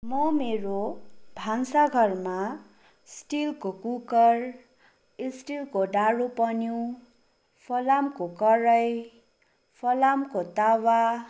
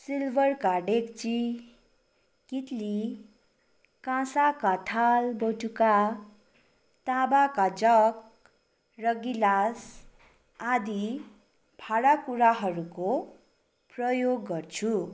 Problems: none marked